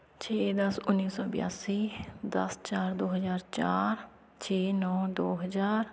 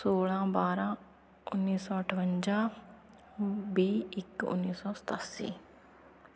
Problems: none marked